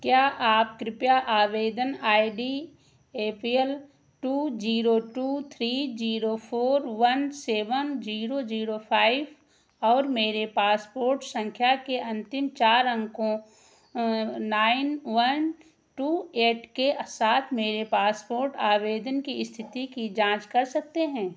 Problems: background sounds at intervals